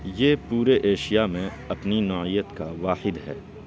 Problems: constant background noise, background conversations at intervals